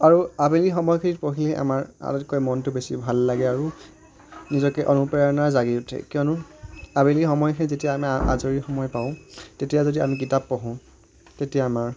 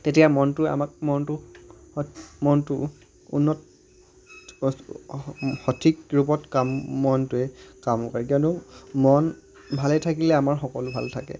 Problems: background sounds at intervals